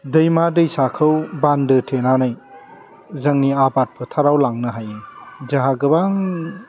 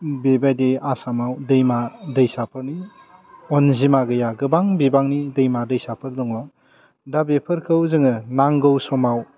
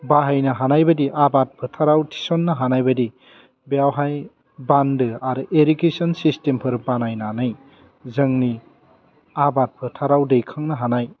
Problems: low volume